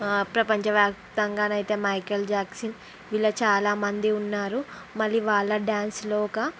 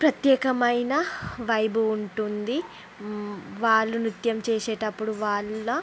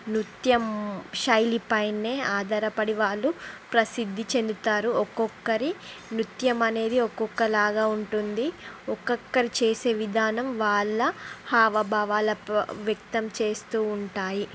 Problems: constant background noise